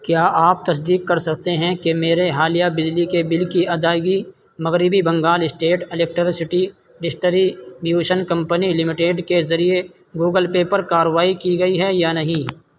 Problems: constant background noise